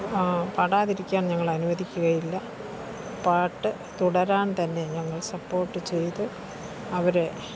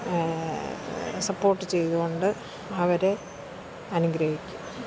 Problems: background sounds at intervals, low volume